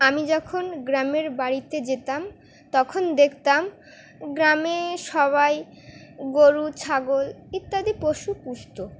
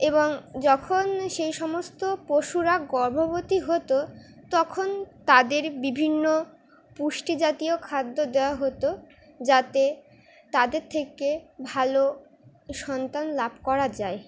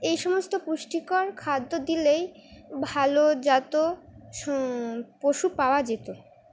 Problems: none marked